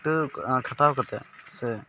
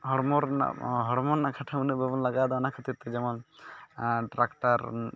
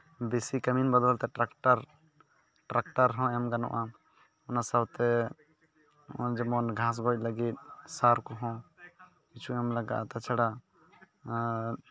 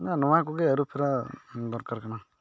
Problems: background sounds at intervals, continuous background conversations